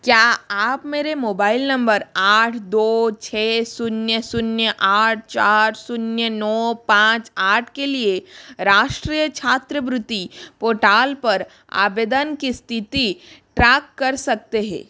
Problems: constant background noise